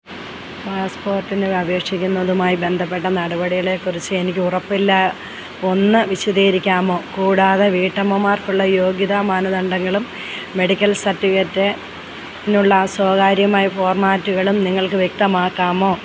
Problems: low volume